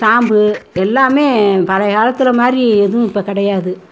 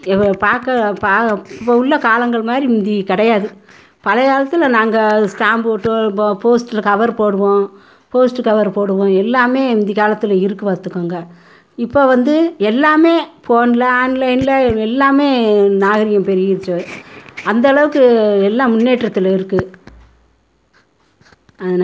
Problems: background sounds at intervals